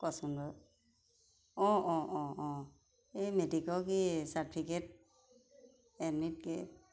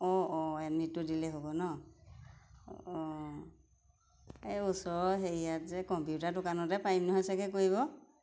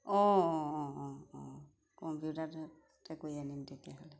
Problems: constant background noise